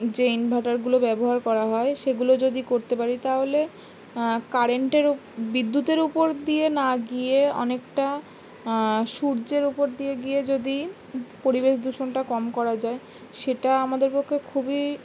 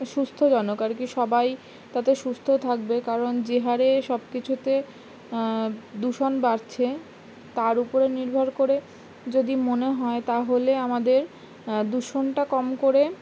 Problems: none marked